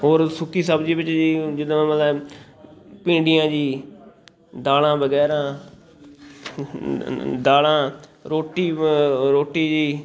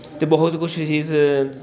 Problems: constant background noise, continuous background conversations